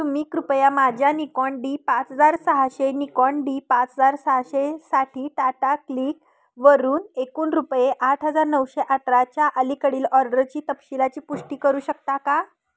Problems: none marked